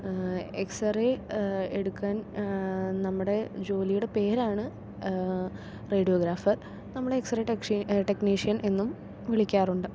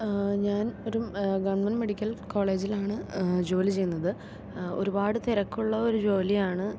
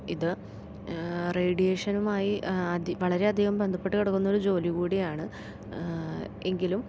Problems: none marked